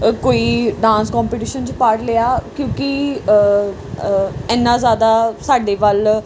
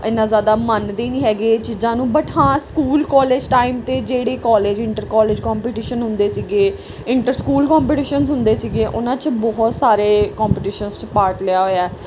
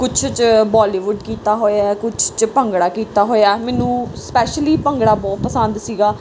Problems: none marked